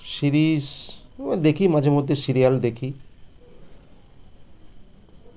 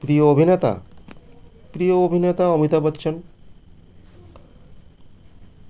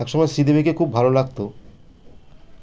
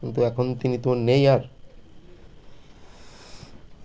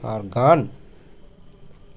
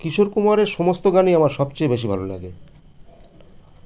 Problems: constant background noise